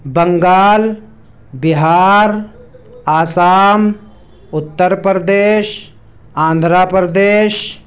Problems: background sounds at intervals